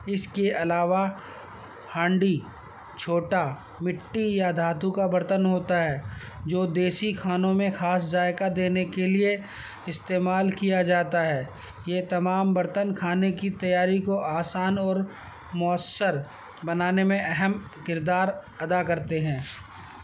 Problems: constant background noise